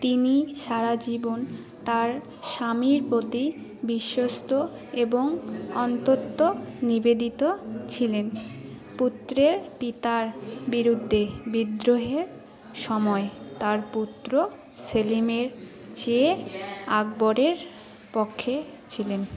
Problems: continuous background conversations